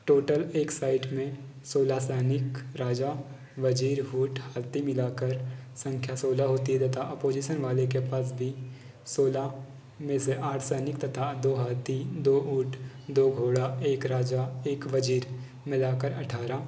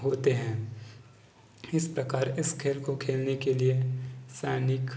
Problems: constant background noise, background conversations at intervals